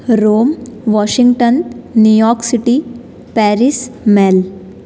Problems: none marked